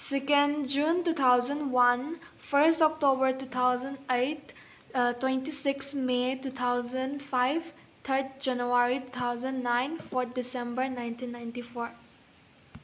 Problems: background sounds at intervals